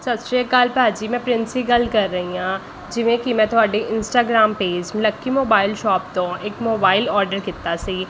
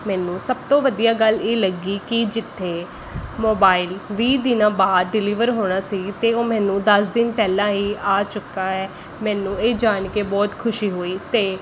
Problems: constant background noise